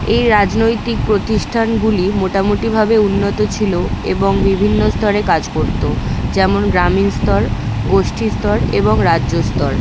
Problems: none marked